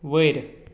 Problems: none marked